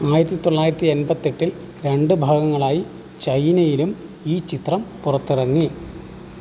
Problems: constant background noise